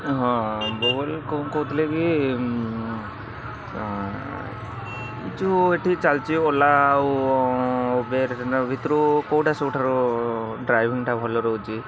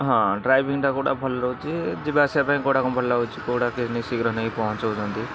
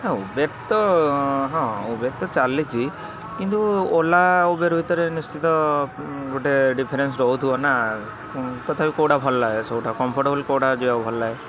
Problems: constant background noise, continuous background conversations